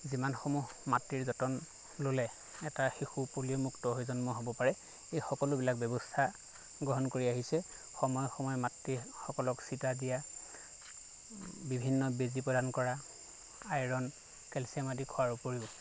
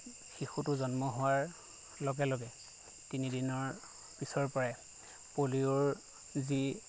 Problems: constant background noise